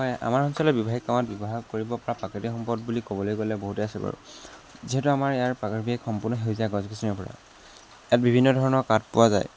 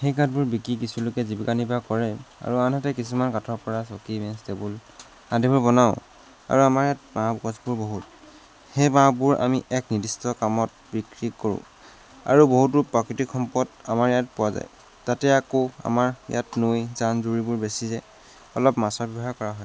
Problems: none marked